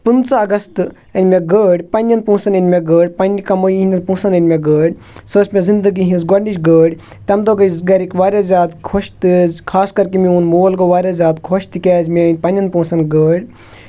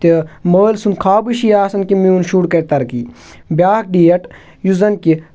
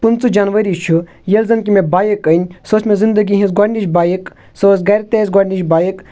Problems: constant background noise